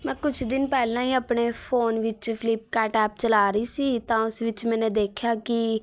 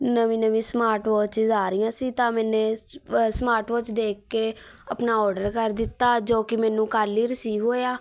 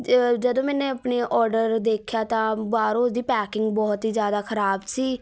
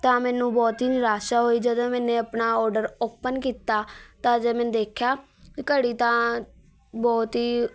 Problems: none marked